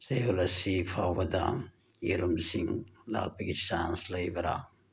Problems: none marked